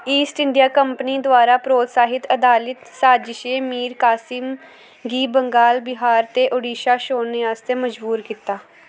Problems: none marked